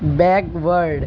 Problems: none marked